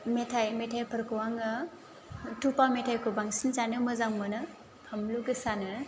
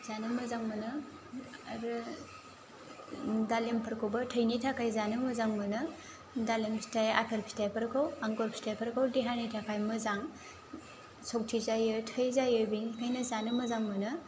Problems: low volume